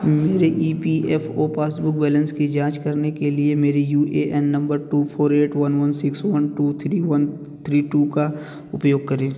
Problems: background sounds at intervals